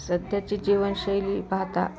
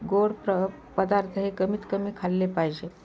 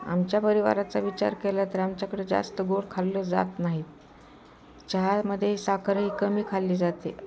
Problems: constant background noise, continuous background conversations